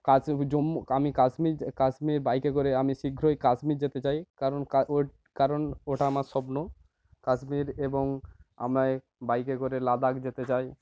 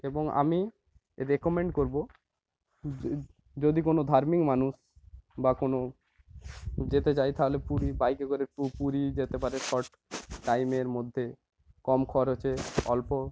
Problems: constant background noise